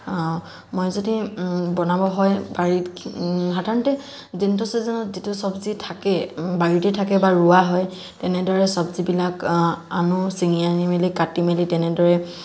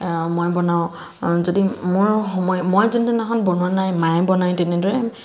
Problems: constant background noise